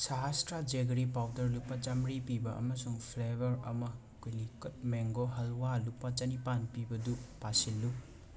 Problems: constant background noise, background conversations at intervals, low volume